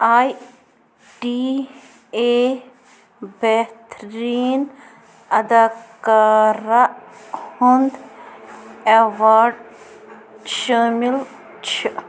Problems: constant background noise